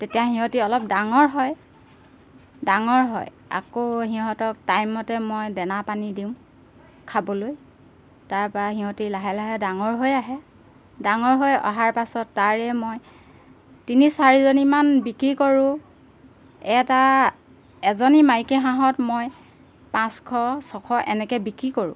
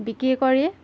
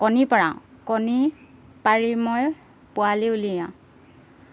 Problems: background sounds at intervals